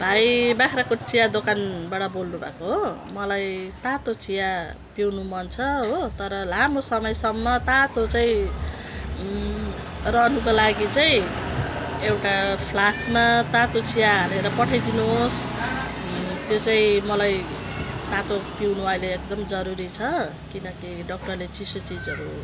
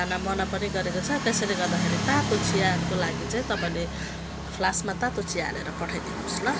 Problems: background sounds at intervals